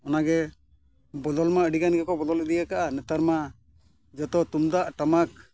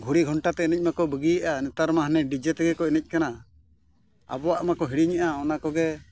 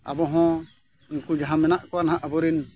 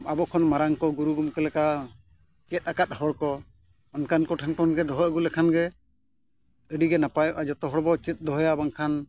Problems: none marked